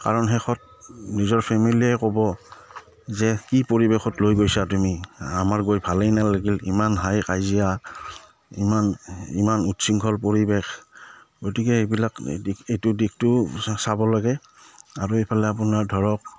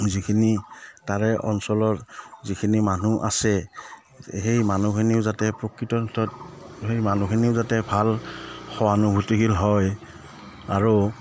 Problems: none marked